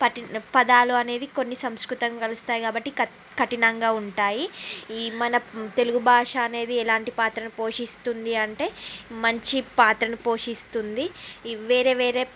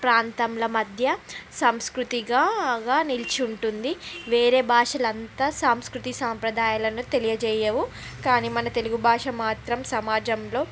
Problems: constant background noise